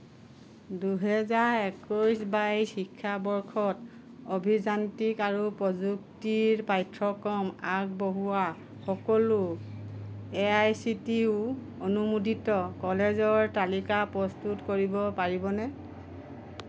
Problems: constant background noise